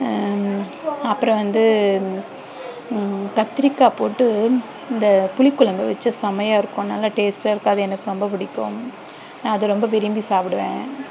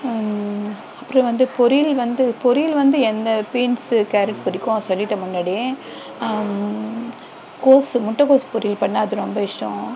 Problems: constant background noise, background conversations at intervals